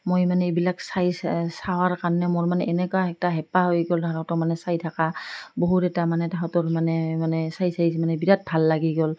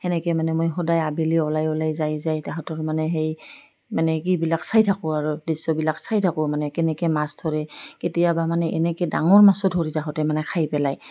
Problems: none marked